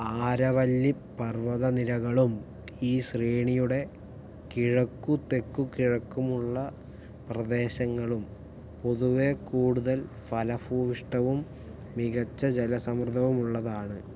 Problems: low volume